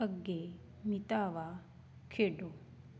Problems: constant background noise